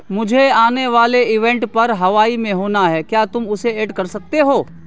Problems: constant background noise